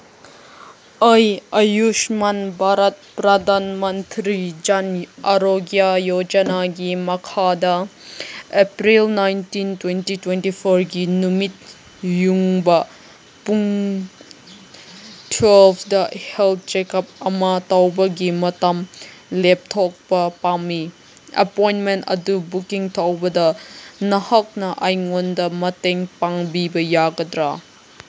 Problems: none marked